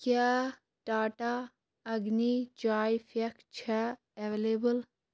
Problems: constant background noise